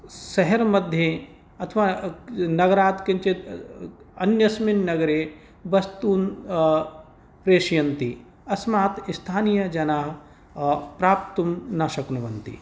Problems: none marked